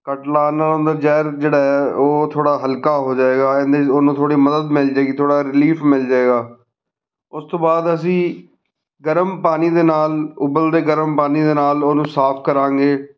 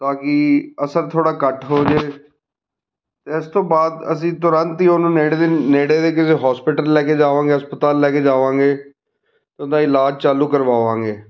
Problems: background conversations at intervals